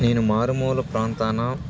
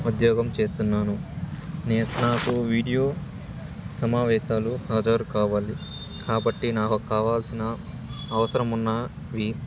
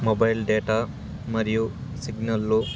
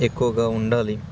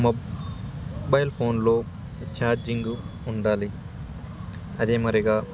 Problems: constant background noise